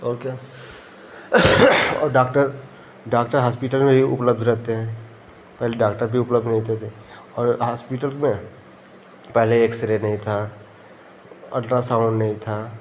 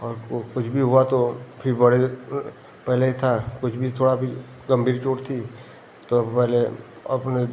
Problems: none marked